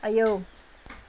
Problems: none marked